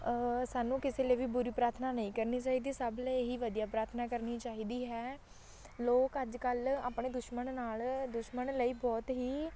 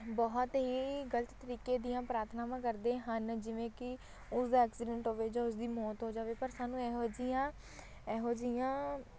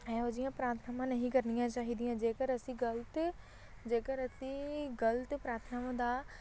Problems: constant background noise, background conversations at intervals